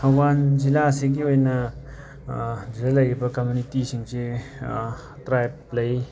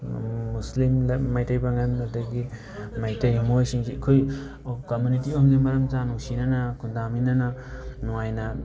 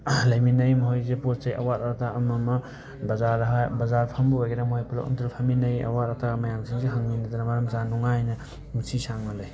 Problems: constant background noise